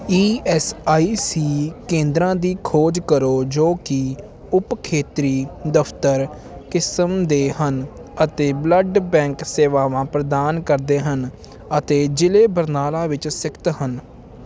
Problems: none marked